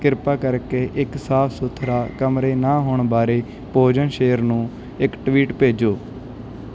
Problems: background sounds at intervals